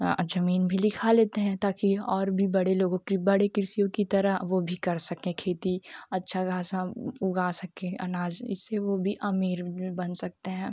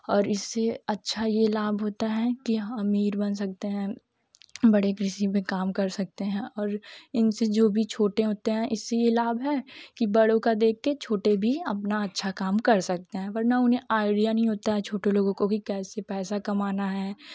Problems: none marked